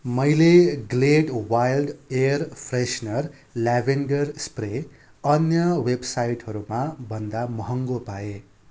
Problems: constant background noise